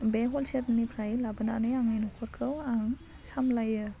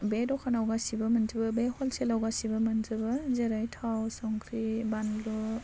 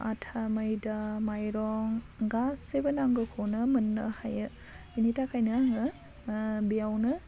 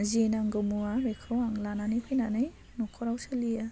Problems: constant background noise